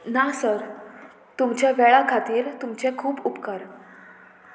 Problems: none marked